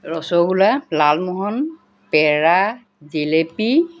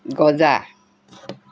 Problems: none marked